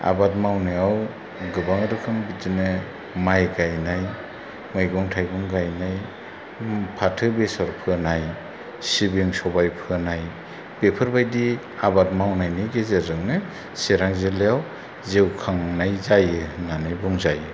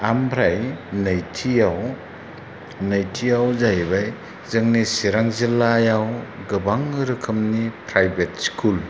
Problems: none marked